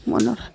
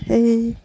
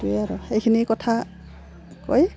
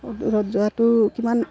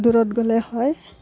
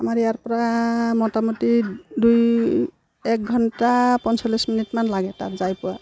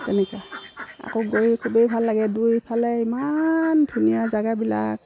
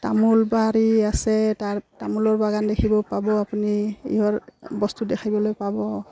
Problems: background sounds at intervals